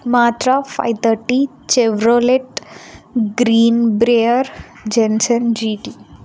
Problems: none marked